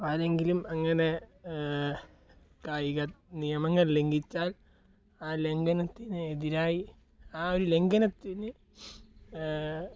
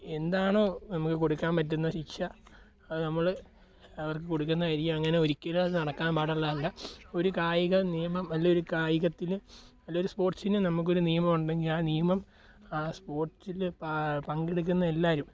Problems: low volume